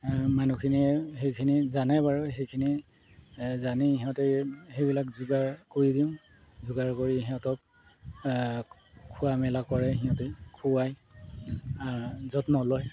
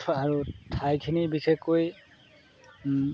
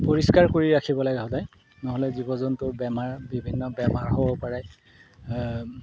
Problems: background sounds at intervals